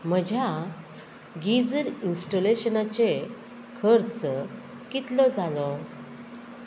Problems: constant background noise